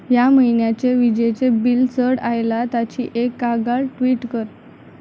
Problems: constant background noise